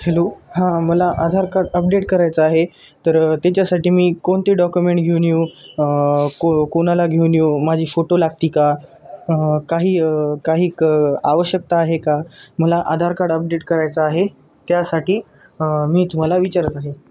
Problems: background sounds at intervals